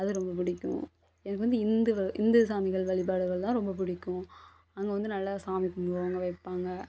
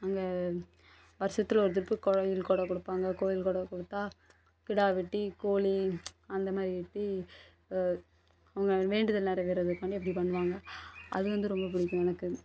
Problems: constant background noise